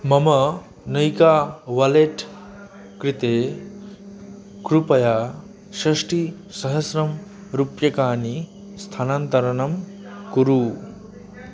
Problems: continuous background conversations